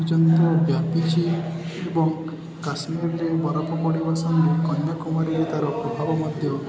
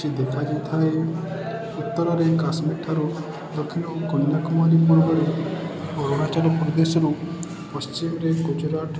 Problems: constant background noise, continuous background conversations